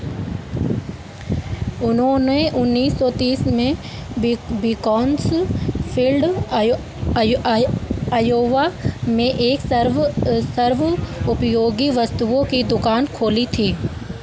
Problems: constant background noise